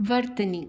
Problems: constant background noise